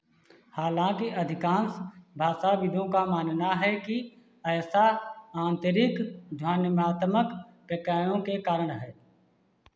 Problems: constant background noise